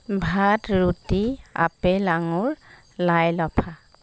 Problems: none marked